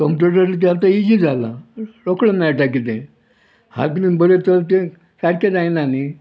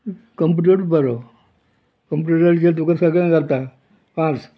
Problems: background sounds at intervals